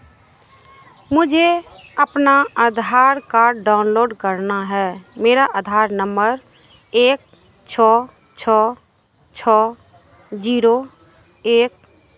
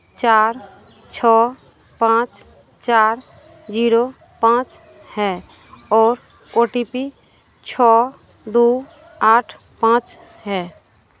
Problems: constant background noise